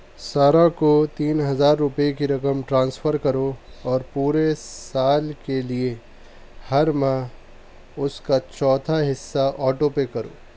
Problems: background sounds at intervals